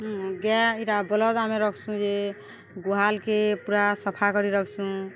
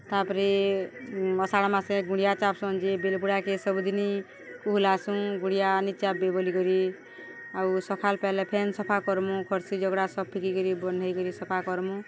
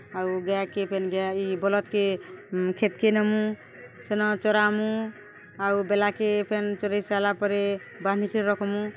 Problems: constant background noise